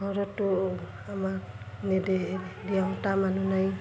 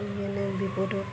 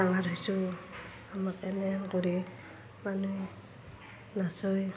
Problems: constant background noise, continuous background conversations